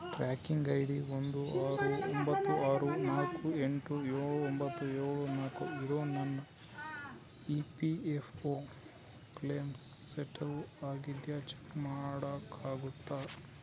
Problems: constant background noise, low volume